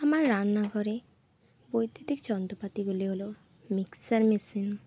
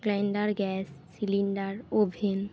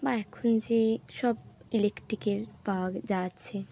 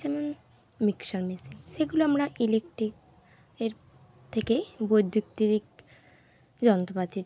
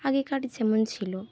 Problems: constant background noise